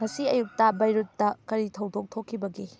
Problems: background sounds at intervals